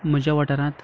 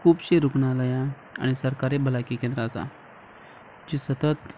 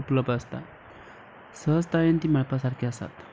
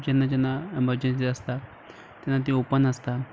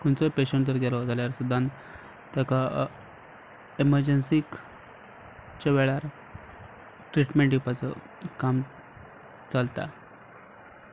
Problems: background sounds at intervals